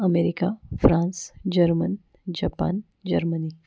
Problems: none marked